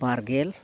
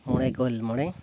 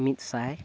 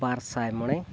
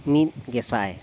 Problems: constant background noise